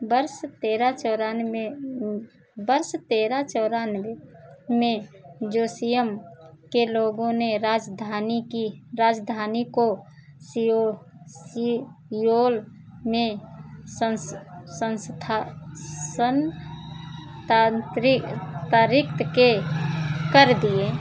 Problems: constant background noise